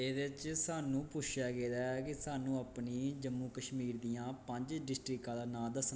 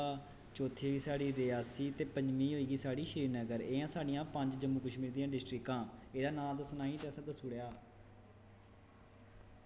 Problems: constant background noise